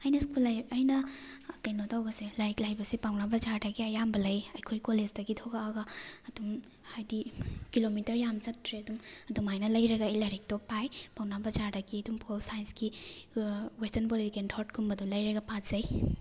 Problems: none marked